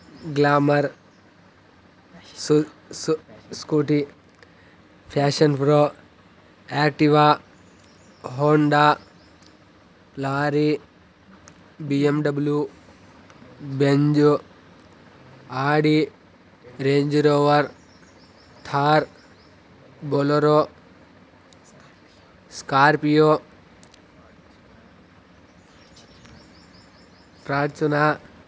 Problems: constant background noise, background conversations at intervals